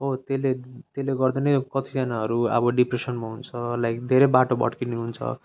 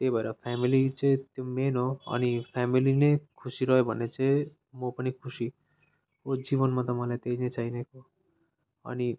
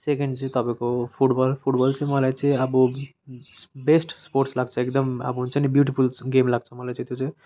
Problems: constant background noise